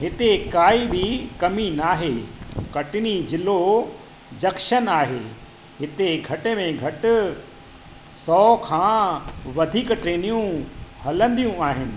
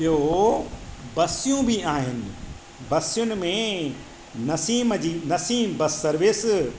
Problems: constant background noise